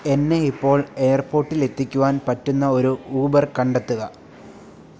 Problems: none marked